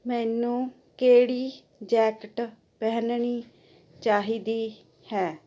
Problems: constant background noise